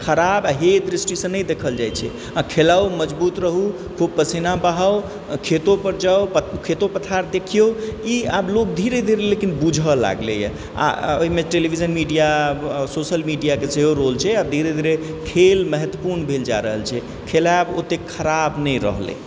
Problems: background sounds at intervals, background conversations at intervals